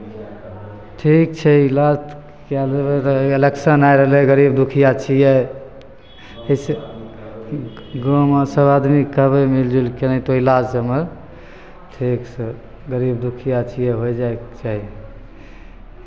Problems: background conversations at intervals